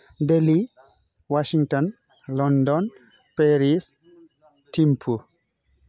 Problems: low volume